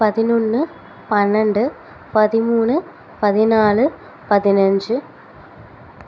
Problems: none marked